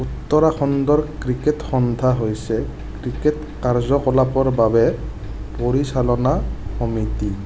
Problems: none marked